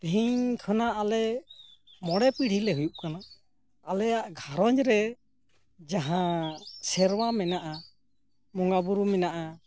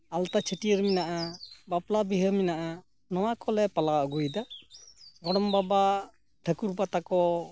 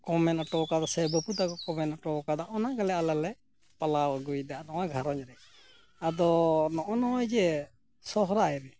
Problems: background sounds at intervals